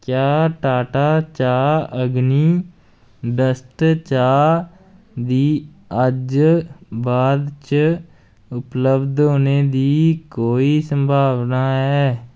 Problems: none marked